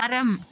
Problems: none marked